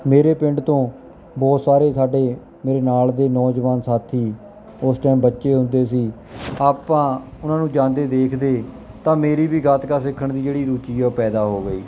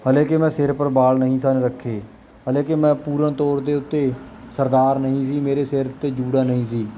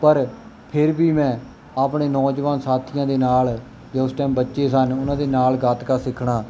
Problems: background sounds at intervals